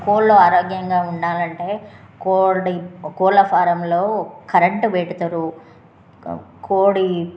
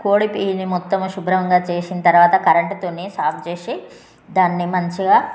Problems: none marked